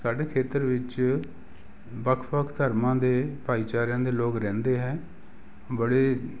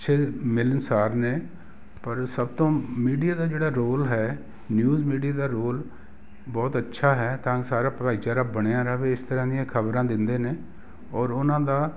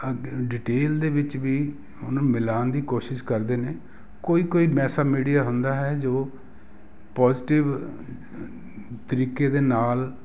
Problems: background sounds at intervals